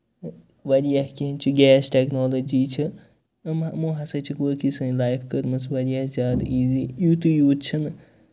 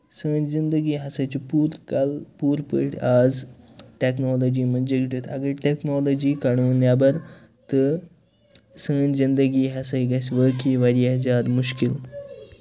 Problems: none marked